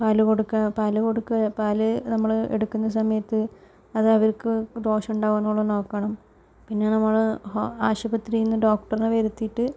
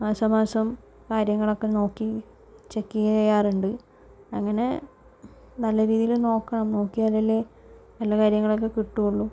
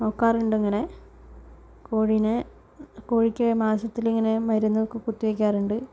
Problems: low volume